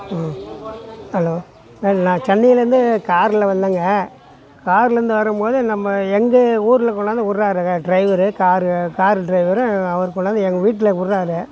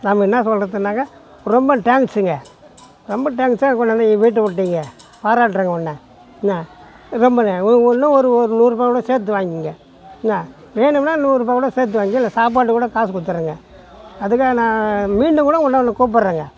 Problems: background sounds at intervals, background conversations at intervals